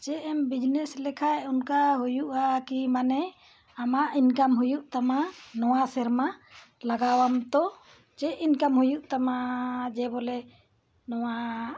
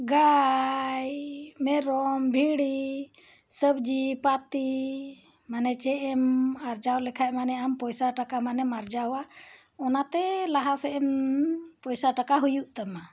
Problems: none marked